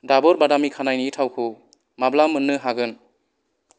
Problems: none marked